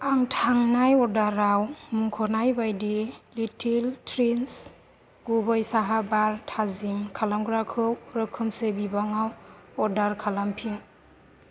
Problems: none marked